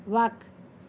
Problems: constant background noise